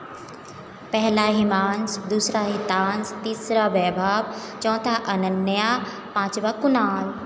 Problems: background sounds at intervals